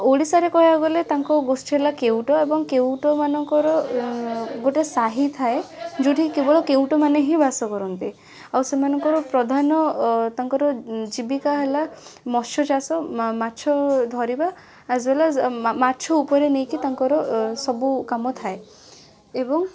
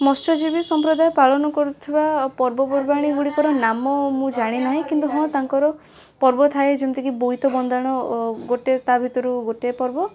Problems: constant background noise, continuous background conversations